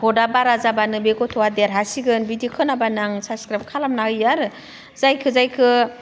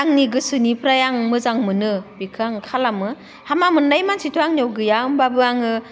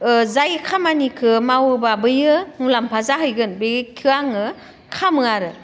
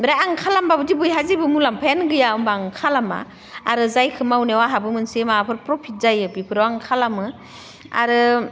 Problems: constant background noise